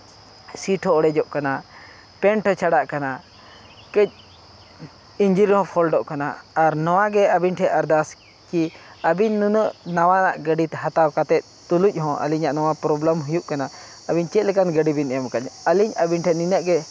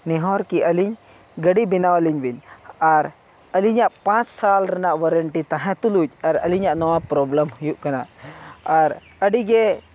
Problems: background sounds at intervals